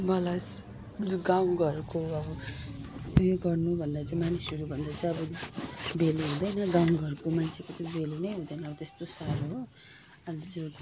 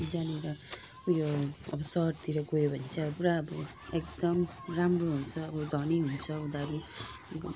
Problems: none marked